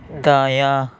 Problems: constant background noise